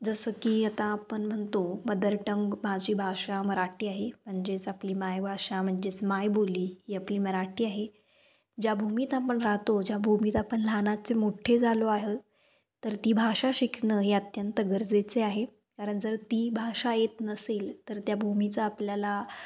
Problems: none marked